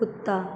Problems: none marked